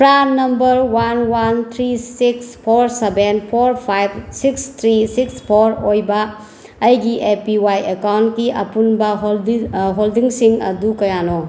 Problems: background sounds at intervals